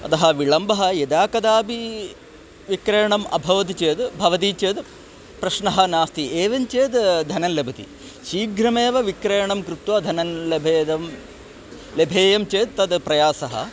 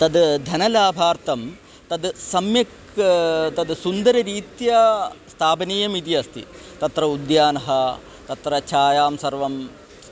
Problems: constant background noise